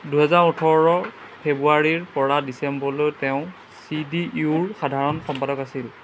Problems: background sounds at intervals